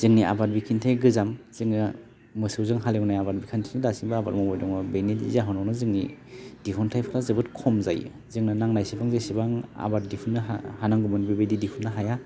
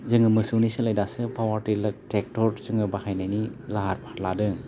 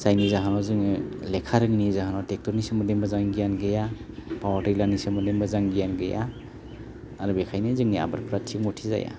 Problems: low volume